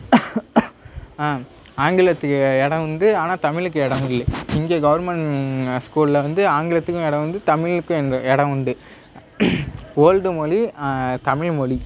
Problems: background sounds at intervals, background conversations at intervals